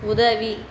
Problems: constant background noise